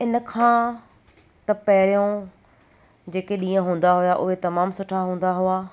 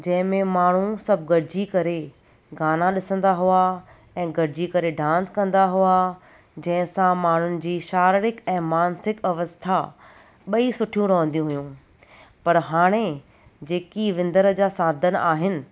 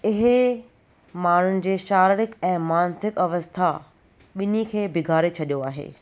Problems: none marked